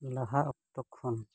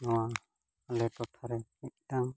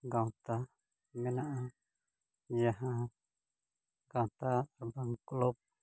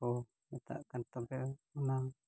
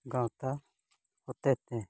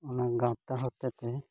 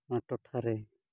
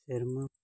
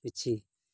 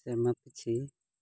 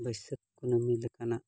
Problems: background sounds at intervals, low volume